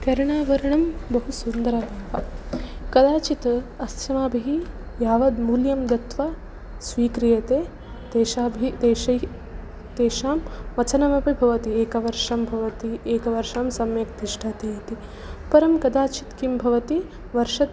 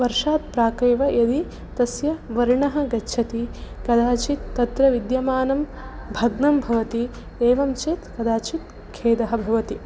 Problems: none marked